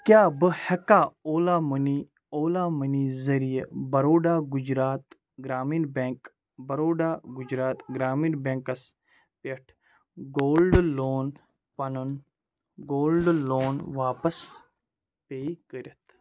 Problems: background conversations at intervals